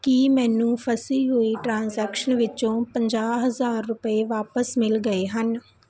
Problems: background conversations at intervals